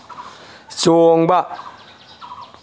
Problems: background sounds at intervals